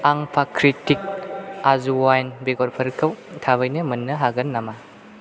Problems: constant background noise